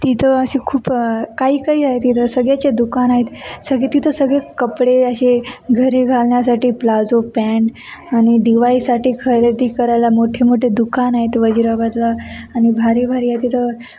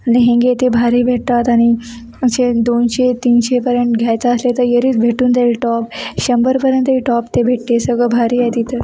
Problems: constant background noise, background conversations at intervals